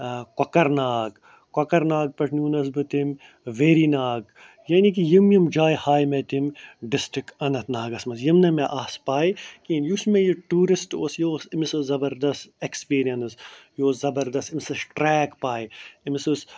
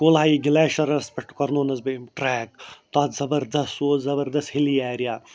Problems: none marked